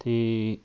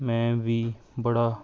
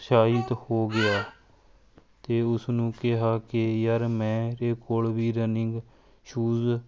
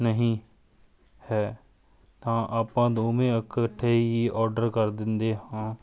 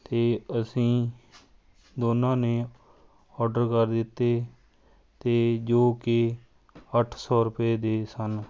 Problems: none marked